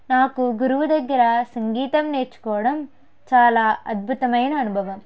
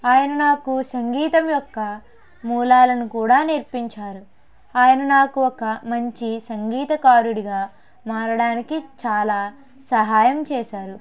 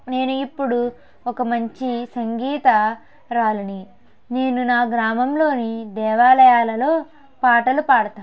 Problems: background conversations at intervals